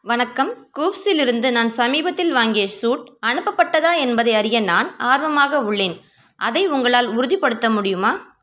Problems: none marked